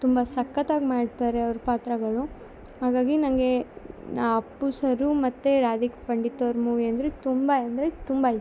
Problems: none marked